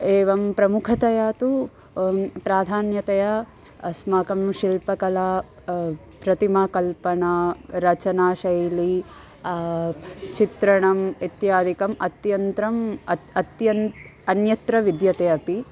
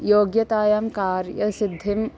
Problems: none marked